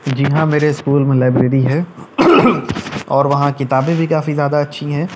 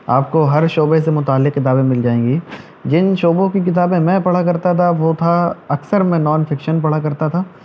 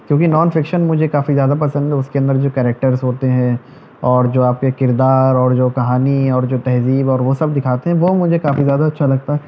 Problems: none marked